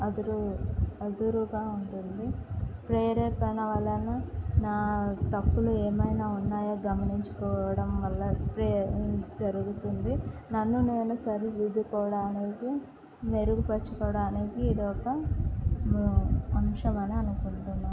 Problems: constant background noise